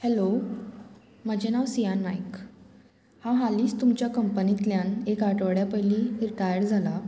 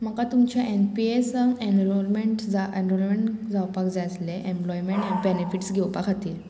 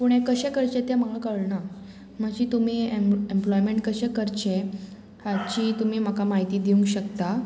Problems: none marked